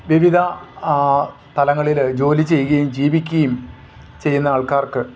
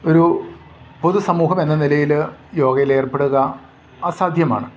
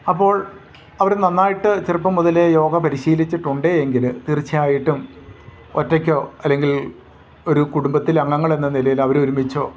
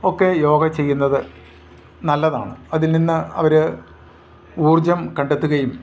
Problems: none marked